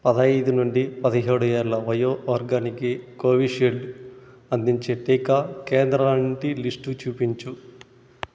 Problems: constant background noise